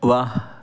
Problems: background sounds at intervals